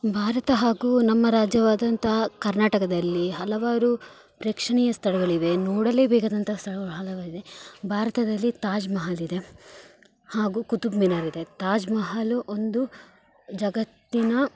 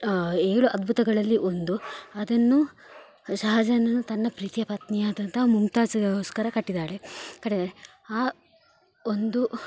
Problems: background sounds at intervals